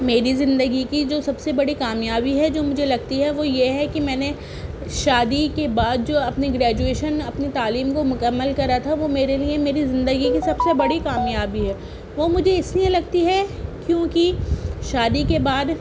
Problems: constant background noise, background conversations at intervals